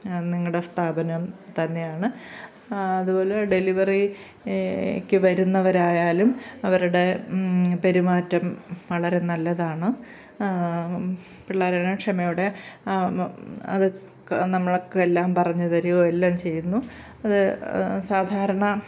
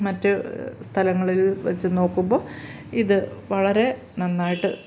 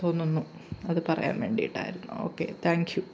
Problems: background sounds at intervals